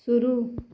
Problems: constant background noise